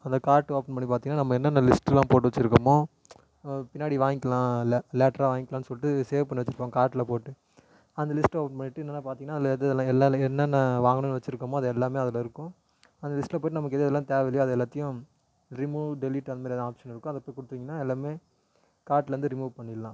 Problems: none marked